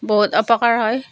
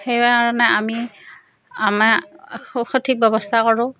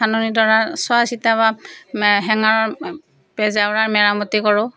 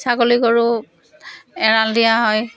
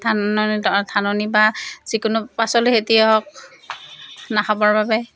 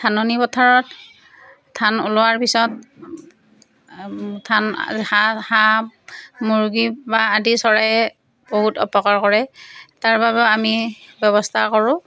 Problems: none marked